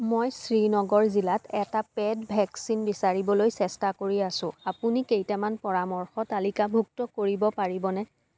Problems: background sounds at intervals